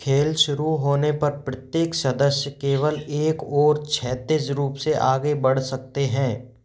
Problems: background sounds at intervals